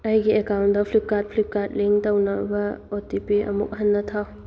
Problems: none marked